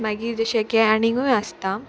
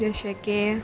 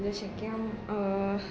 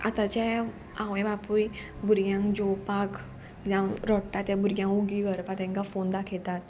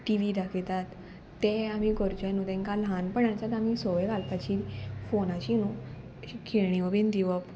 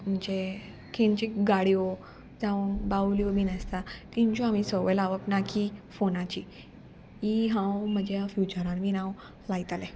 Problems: none marked